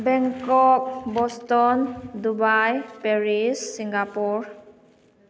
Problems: background sounds at intervals